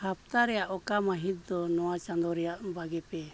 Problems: none marked